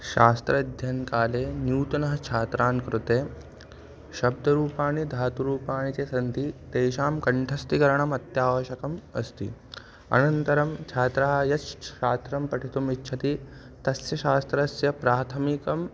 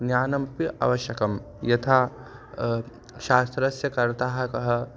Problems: constant background noise